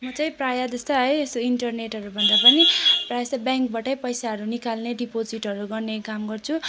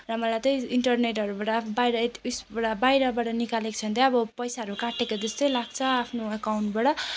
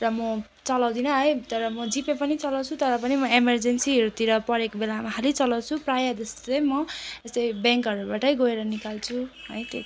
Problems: constant background noise